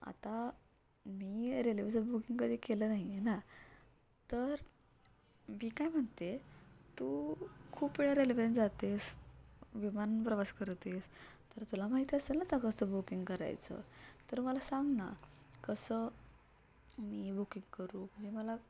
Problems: none marked